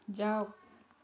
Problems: background conversations at intervals